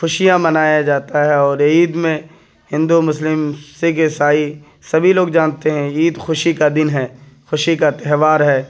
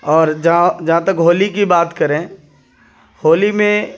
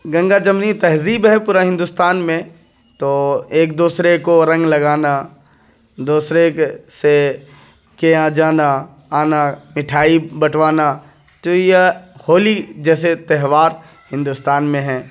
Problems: background sounds at intervals